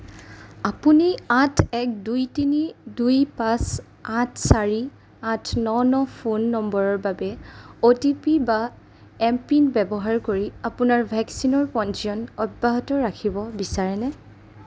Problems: none marked